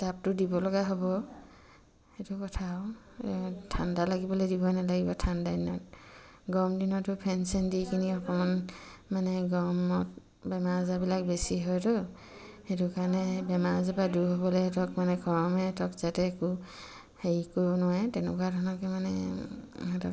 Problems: none marked